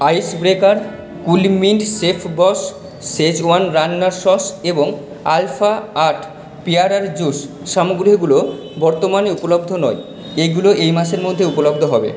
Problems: background sounds at intervals, echo